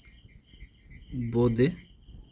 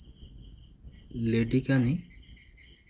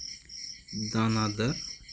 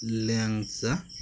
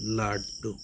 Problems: constant background noise